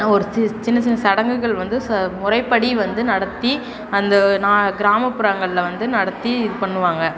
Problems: background conversations at intervals